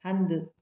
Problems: echo